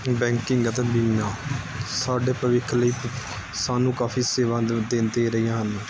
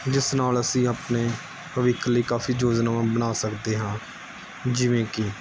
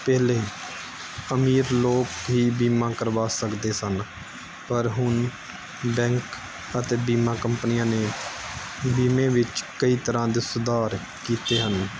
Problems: background sounds at intervals